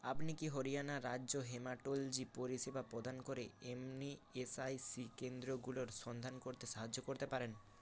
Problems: constant background noise